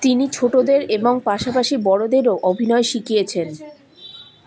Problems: constant background noise, continuous background conversations